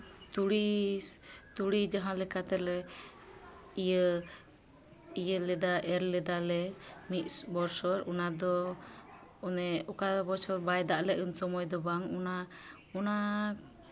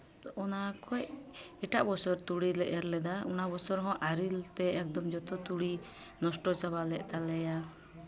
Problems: constant background noise, background conversations at intervals